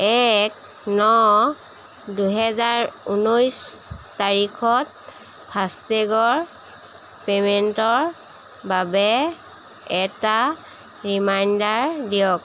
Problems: constant background noise